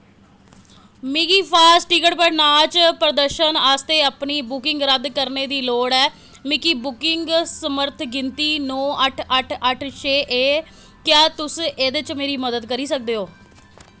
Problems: background sounds at intervals